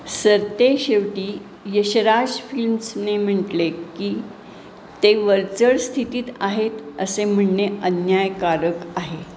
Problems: none marked